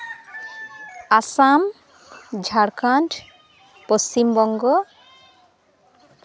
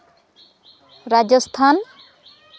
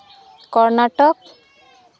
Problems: background conversations at intervals